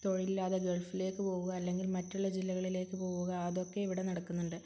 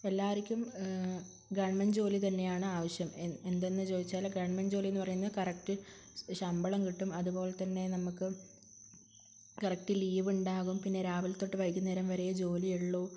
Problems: low volume